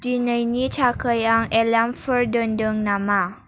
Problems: none marked